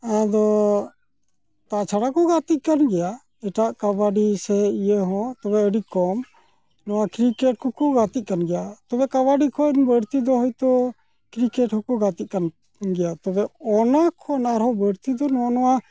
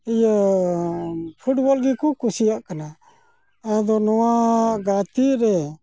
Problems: none marked